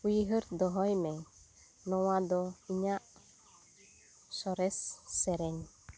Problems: background sounds at intervals